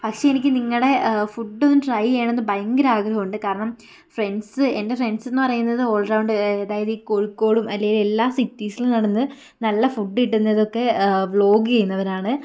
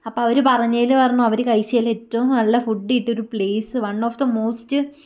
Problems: none marked